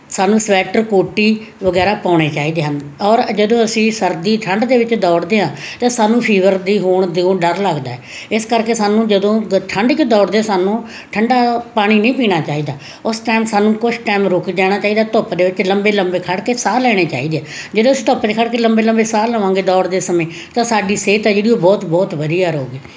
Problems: constant background noise